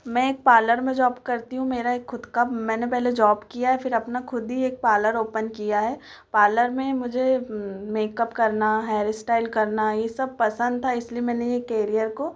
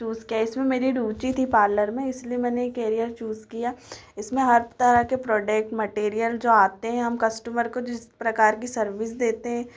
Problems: echo